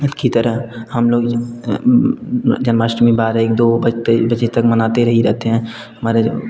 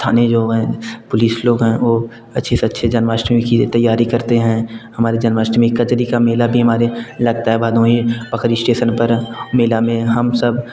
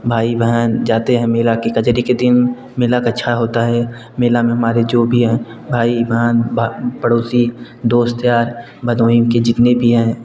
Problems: constant background noise